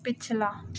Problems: constant background noise